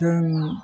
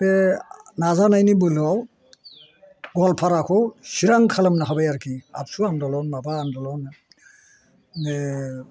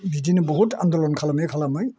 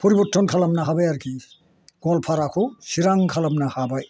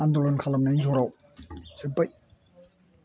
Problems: constant background noise